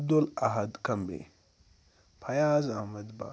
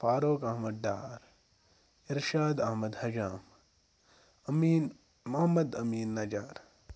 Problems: background sounds at intervals